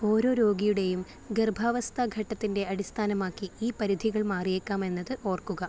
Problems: low volume